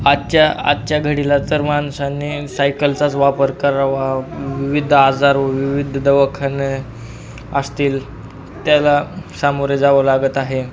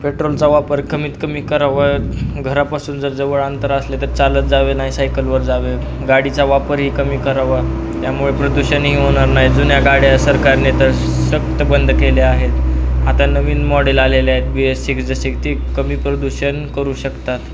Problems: constant background noise, background conversations at intervals